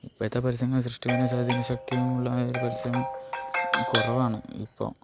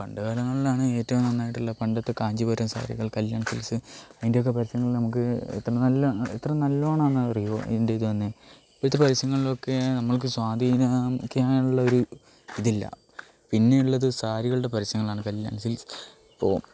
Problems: background sounds at intervals